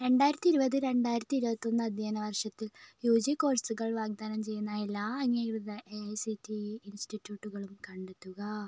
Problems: low volume